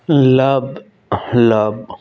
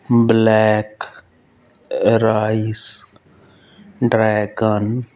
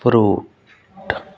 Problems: none marked